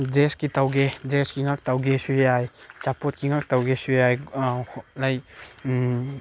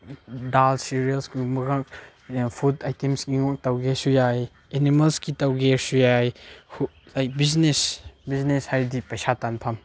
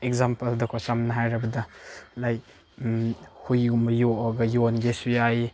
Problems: none marked